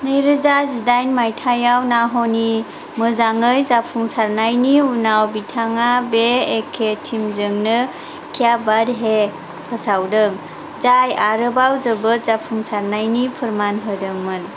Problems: constant background noise